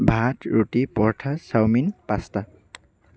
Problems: none marked